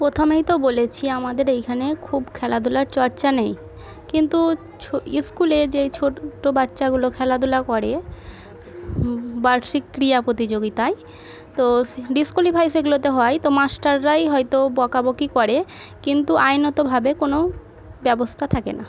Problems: background sounds at intervals, background conversations at intervals